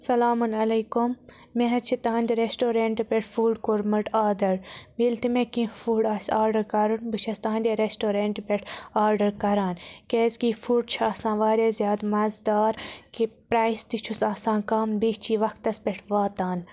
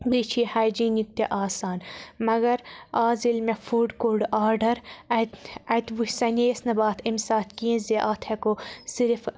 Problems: none marked